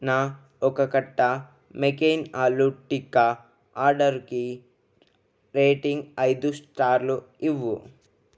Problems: none marked